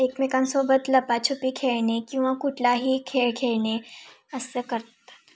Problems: constant background noise